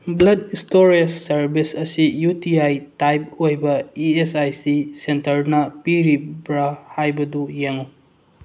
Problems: background sounds at intervals